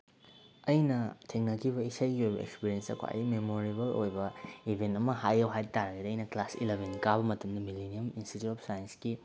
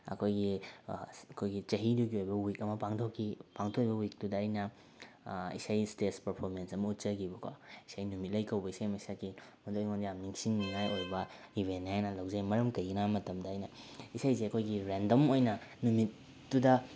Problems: none marked